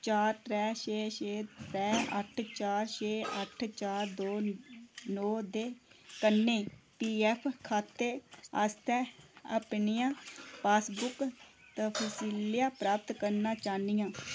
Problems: constant background noise, echo